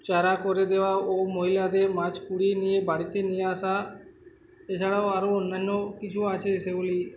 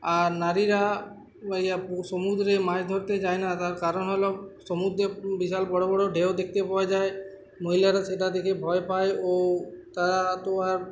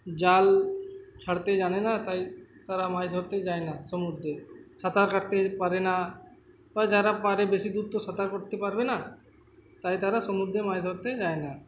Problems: constant background noise